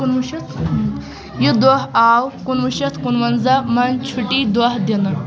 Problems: constant background noise, background conversations at intervals